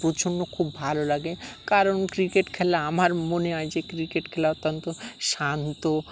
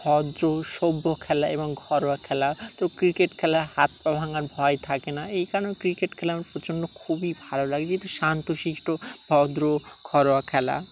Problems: none marked